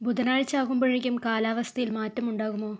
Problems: low volume